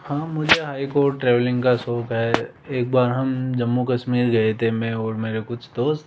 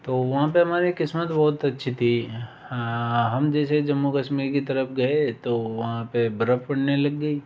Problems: background sounds at intervals